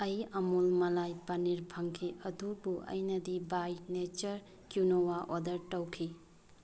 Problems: background sounds at intervals